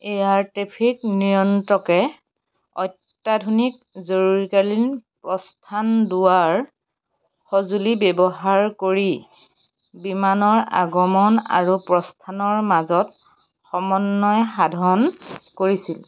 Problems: none marked